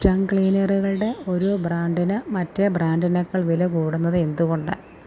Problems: low volume